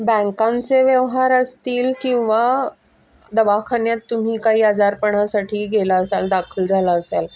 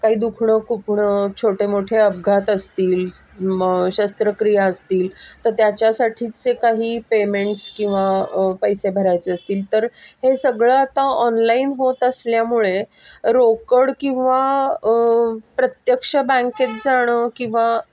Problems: constant background noise, background conversations at intervals